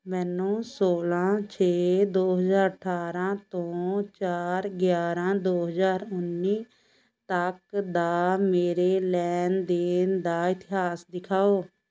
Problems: constant background noise